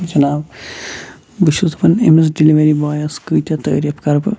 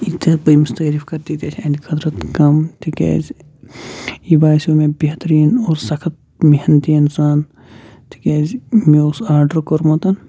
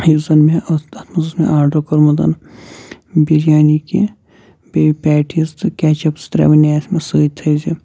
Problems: background sounds at intervals